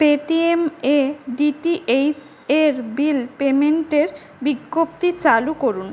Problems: background sounds at intervals